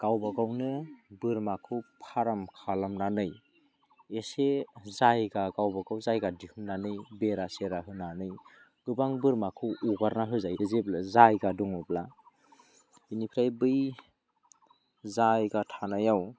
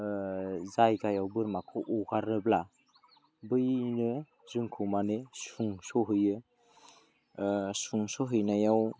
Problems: low volume